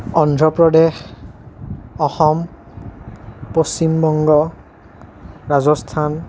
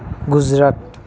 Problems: continuous background conversations